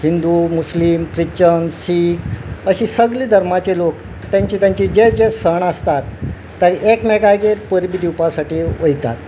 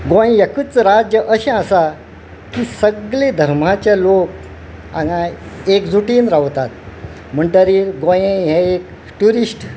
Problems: none marked